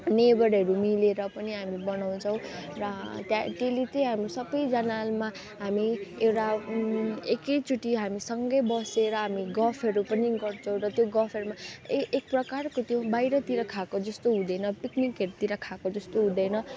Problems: background sounds at intervals